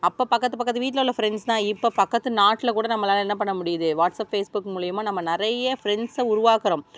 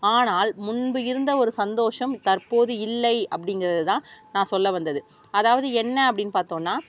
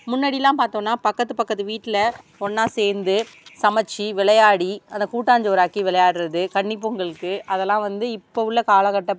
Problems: background sounds at intervals